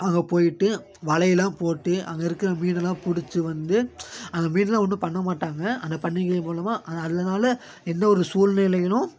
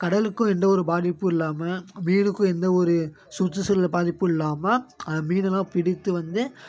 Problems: constant background noise